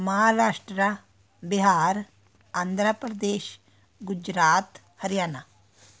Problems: continuous background conversations